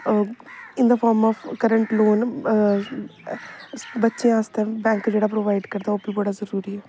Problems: constant background noise